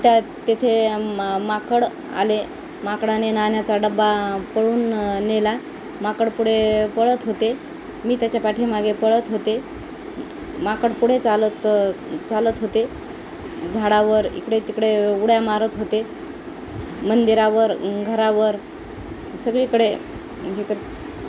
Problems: constant background noise